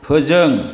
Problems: constant background noise